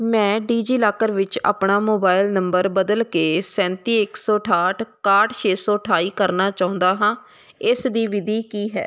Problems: background sounds at intervals